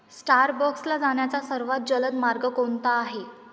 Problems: none marked